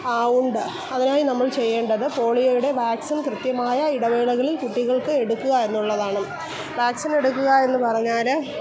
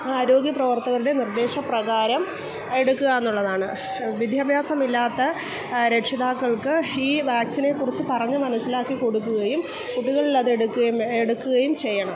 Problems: background sounds at intervals